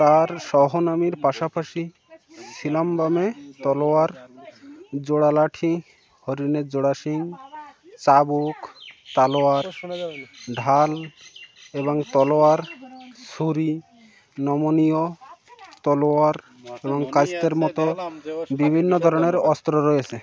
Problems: none marked